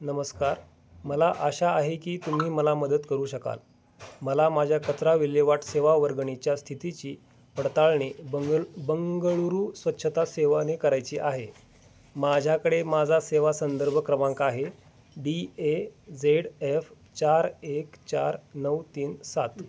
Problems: background sounds at intervals